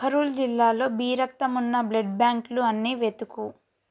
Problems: none marked